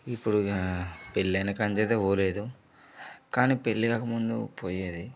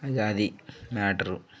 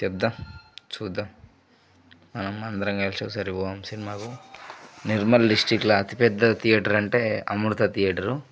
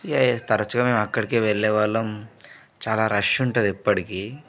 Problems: low volume